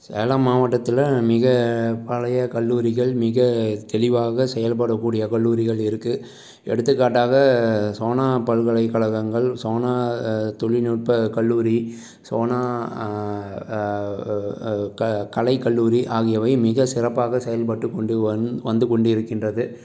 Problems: none marked